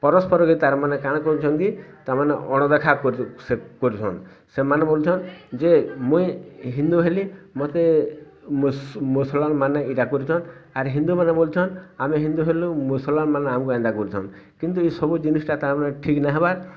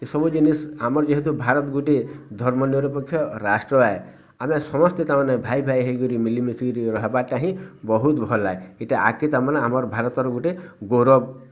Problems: constant background noise, continuous background conversations